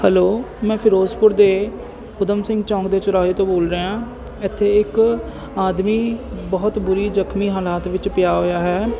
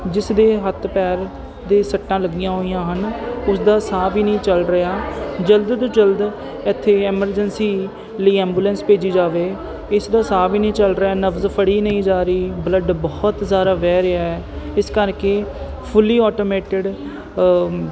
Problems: none marked